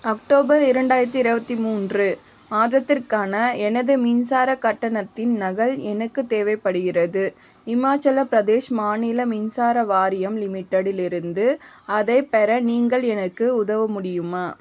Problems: constant background noise, background conversations at intervals